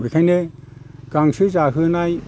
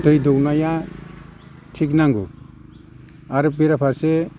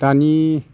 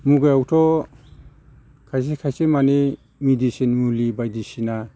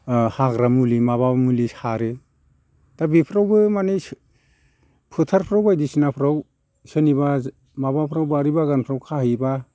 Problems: constant background noise